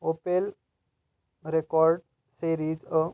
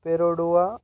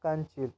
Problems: constant background noise